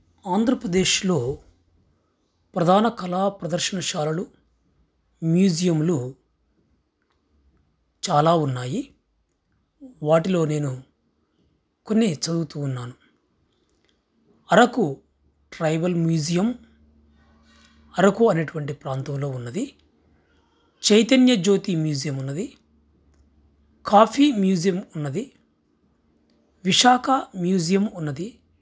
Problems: none marked